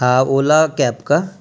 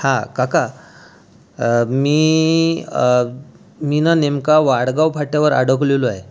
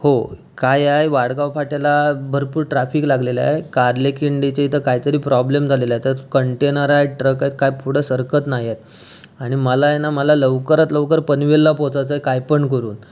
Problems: constant background noise, background conversations at intervals